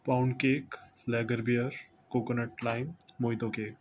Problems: constant background noise